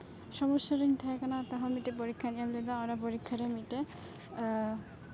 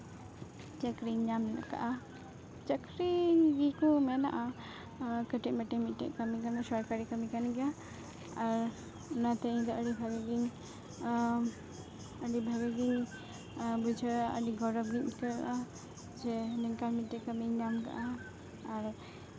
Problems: constant background noise, continuous background conversations